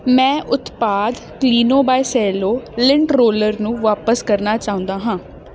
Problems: none marked